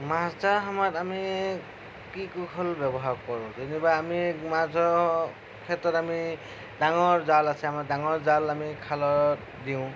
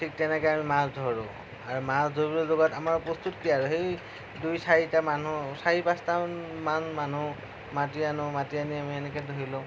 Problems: low volume